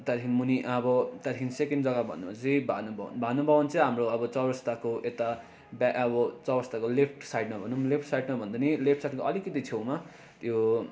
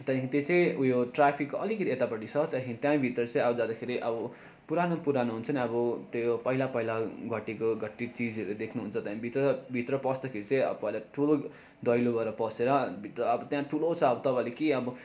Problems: constant background noise